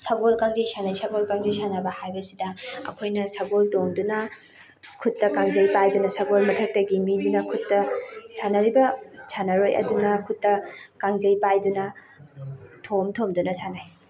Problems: background sounds at intervals, background conversations at intervals